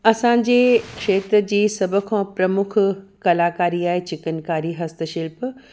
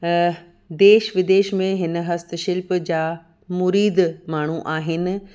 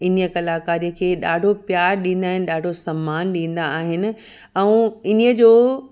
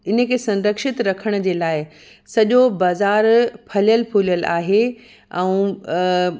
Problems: background sounds at intervals